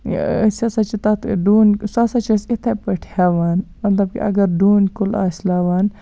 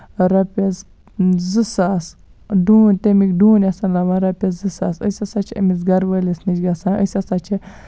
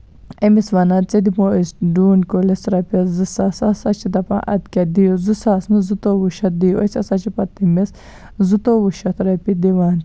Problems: none marked